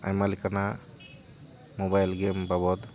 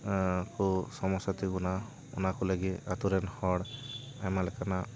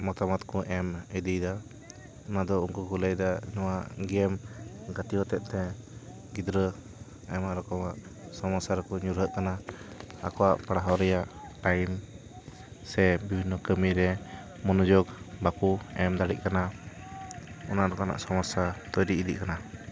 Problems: constant background noise